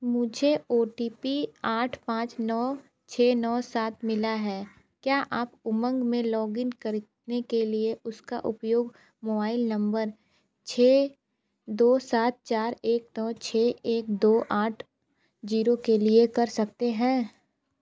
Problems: none marked